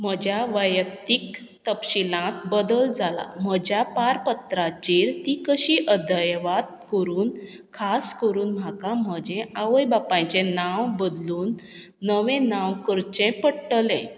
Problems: none marked